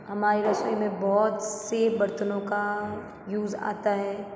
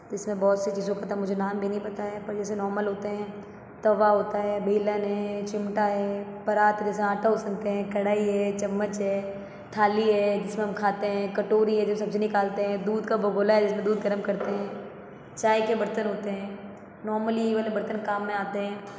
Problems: constant background noise